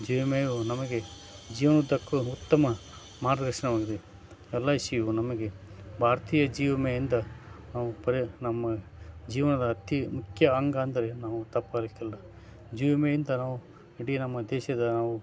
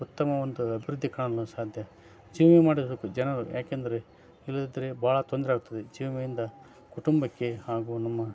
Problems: none marked